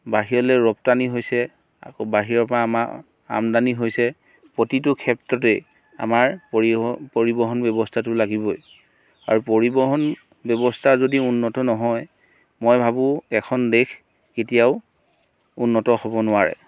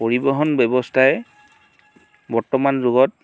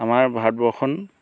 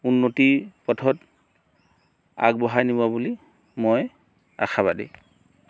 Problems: background sounds at intervals